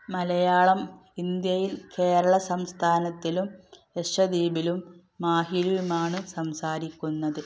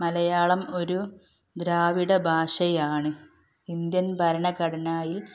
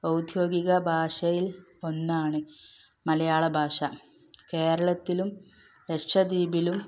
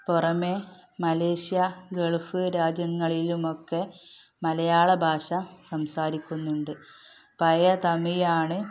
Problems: background sounds at intervals